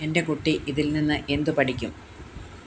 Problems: none marked